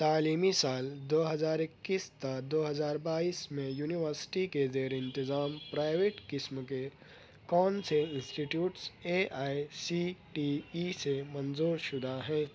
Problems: none marked